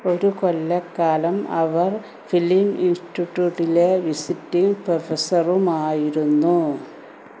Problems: constant background noise